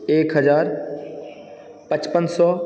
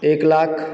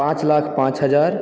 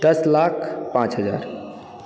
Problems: background sounds at intervals